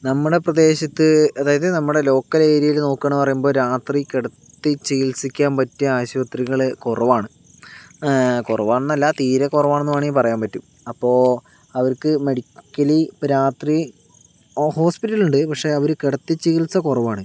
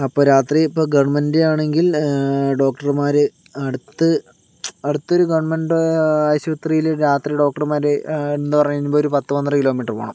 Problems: none marked